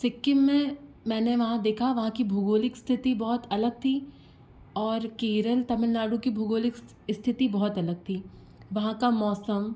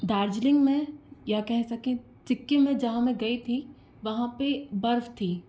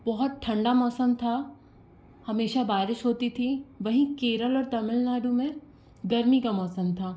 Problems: none marked